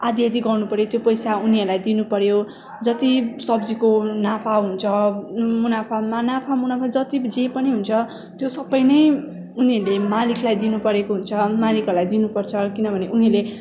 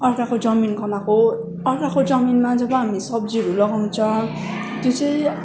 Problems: constant background noise, continuous background conversations